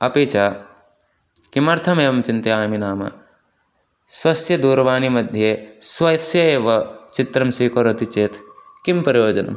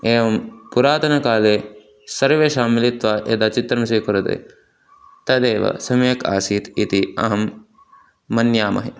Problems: constant background noise